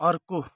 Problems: background sounds at intervals